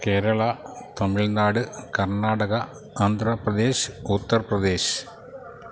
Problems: background sounds at intervals